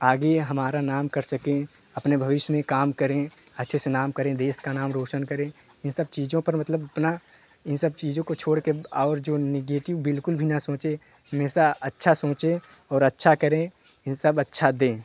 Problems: background sounds at intervals, continuous background conversations